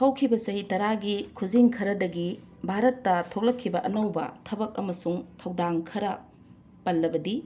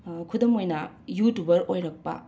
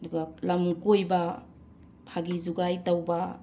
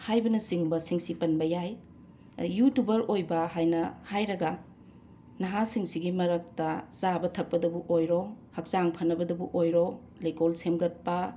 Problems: constant background noise